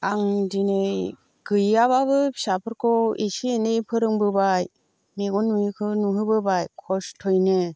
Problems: none marked